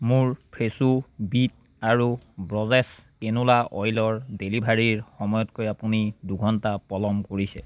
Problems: none marked